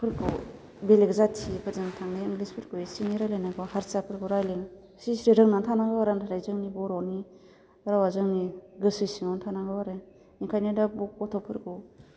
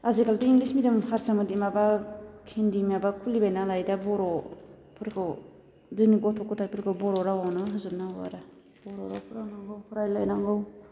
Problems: constant background noise